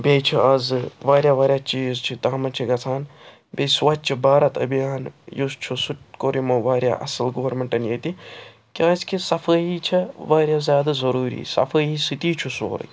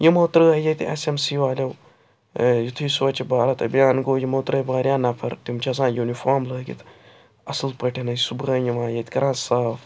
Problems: constant background noise